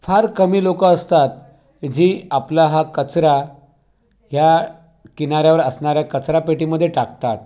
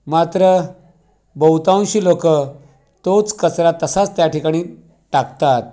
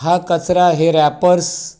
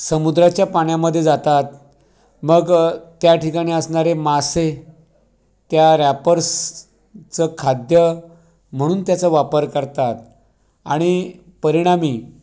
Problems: background sounds at intervals, background conversations at intervals